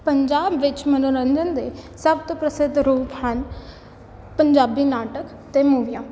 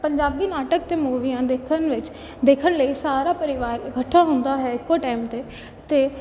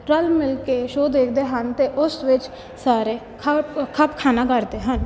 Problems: background sounds at intervals